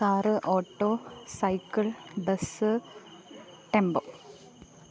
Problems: none marked